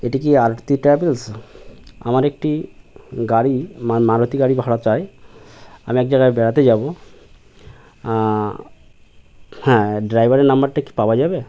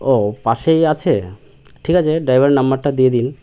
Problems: constant background noise